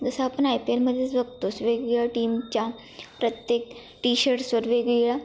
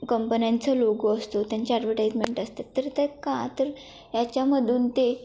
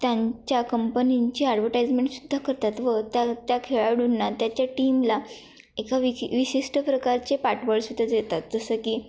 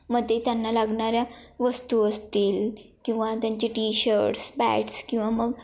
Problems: constant background noise